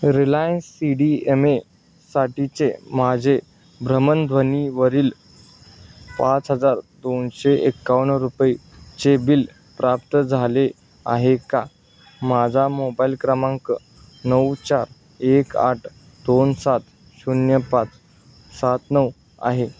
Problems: none marked